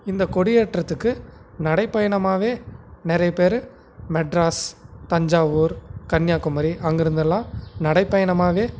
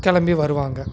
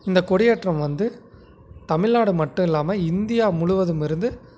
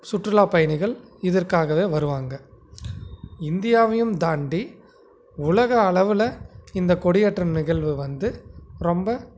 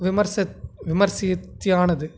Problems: background sounds at intervals